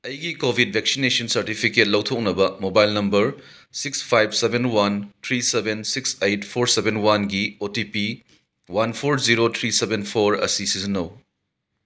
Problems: none marked